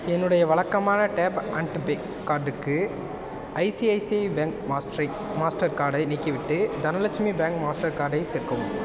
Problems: constant background noise